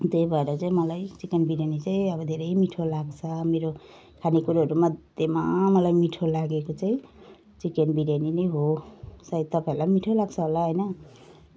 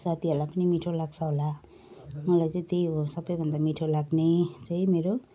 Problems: none marked